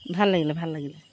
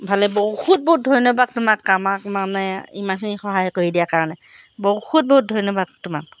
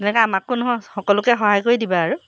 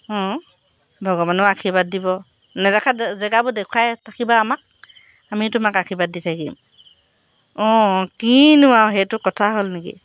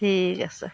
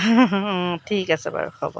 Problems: background sounds at intervals